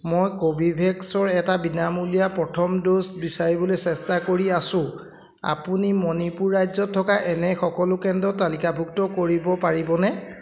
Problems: background sounds at intervals